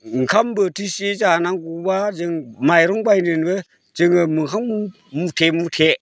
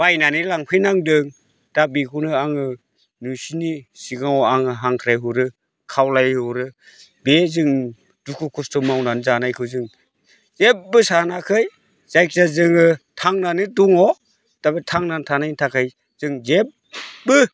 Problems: none marked